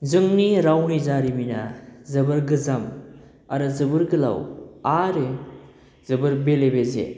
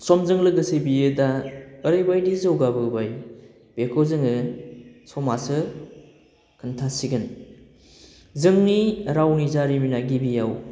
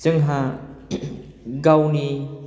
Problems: constant background noise